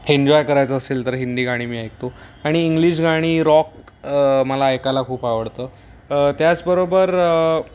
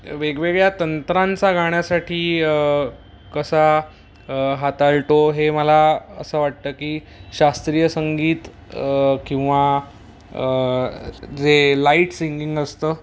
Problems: none marked